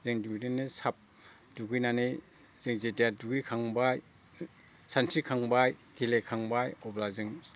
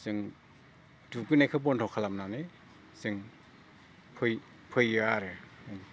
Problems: none marked